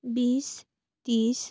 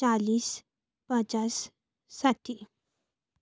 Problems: constant background noise